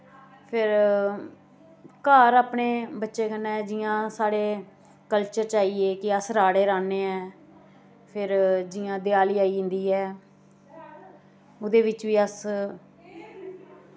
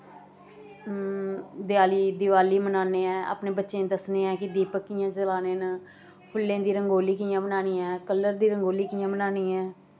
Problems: constant background noise